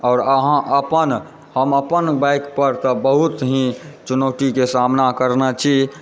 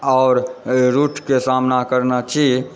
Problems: background sounds at intervals, background conversations at intervals